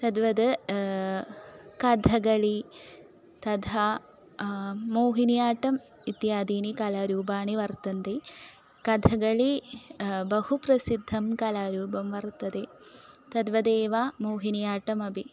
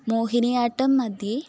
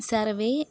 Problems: none marked